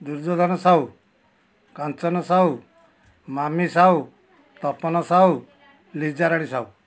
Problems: none marked